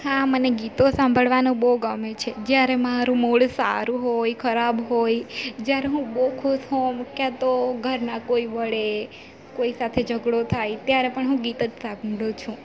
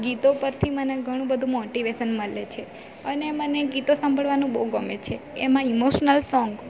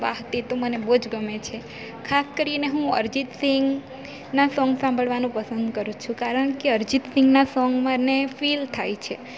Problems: none marked